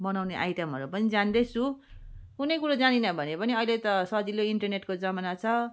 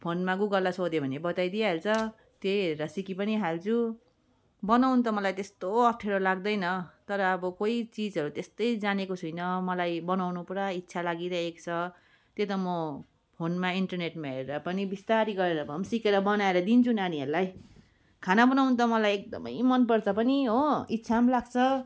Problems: background sounds at intervals